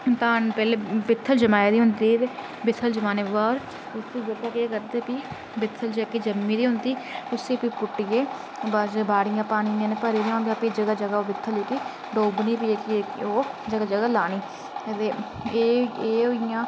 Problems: constant background noise